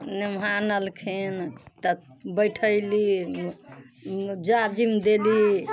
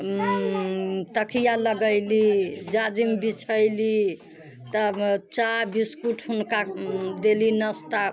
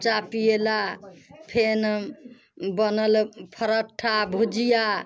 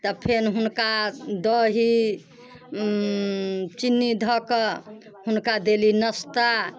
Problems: constant background noise